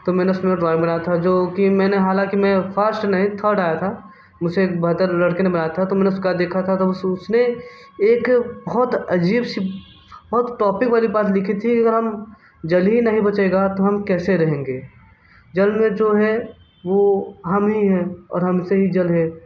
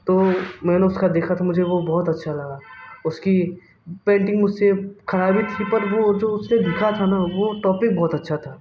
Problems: none marked